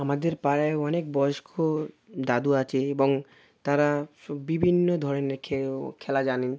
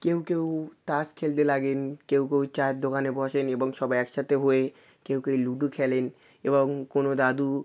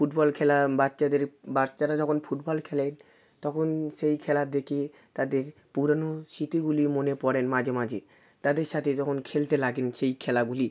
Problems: constant background noise